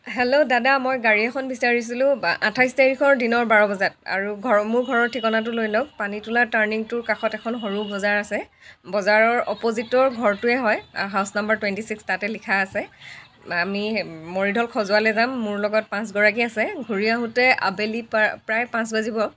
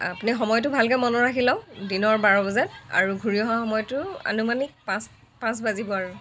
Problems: continuous background conversations